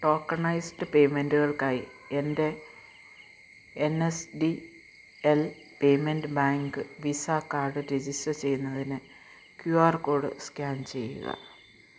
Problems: low volume